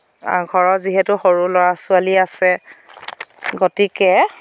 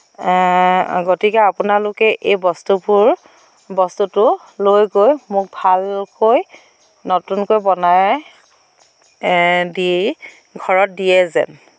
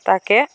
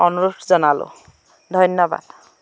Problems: constant background noise